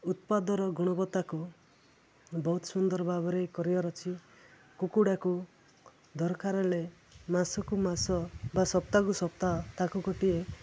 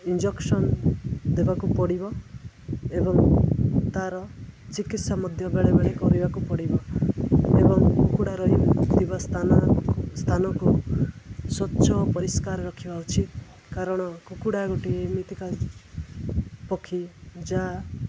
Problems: constant background noise